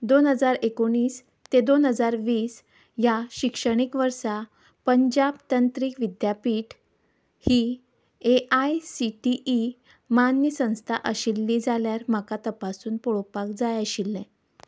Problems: background sounds at intervals